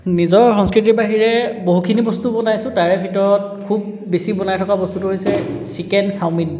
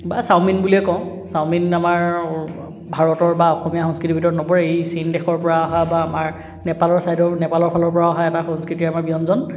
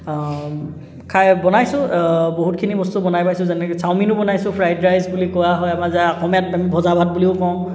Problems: background sounds at intervals, background conversations at intervals